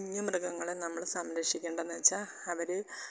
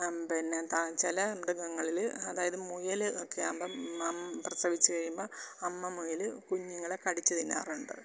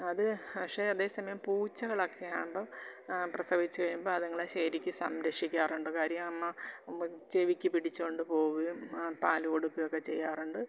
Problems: constant background noise, low volume